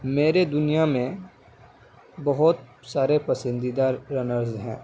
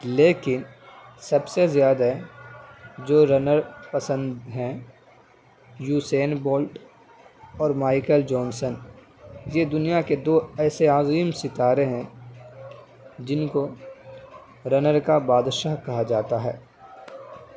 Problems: background conversations at intervals